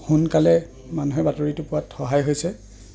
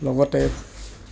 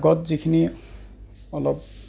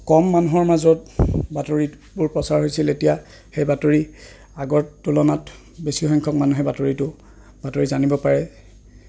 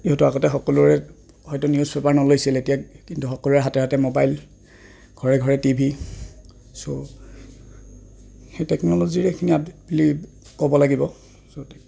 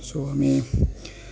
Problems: constant background noise